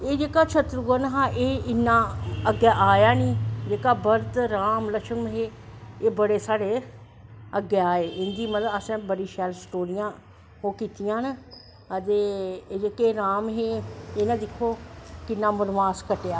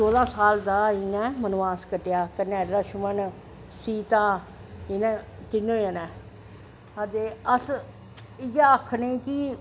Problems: echo